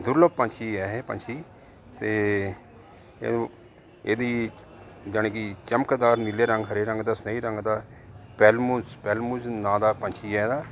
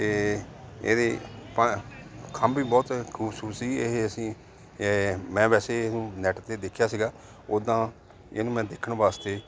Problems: none marked